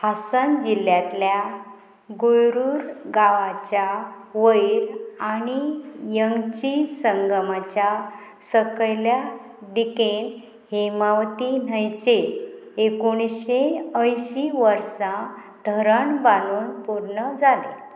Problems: constant background noise